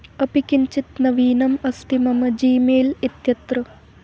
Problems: constant background noise